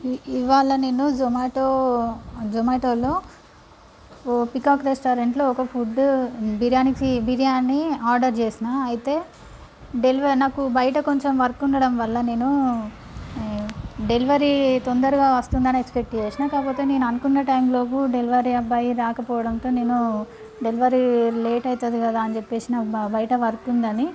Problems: none marked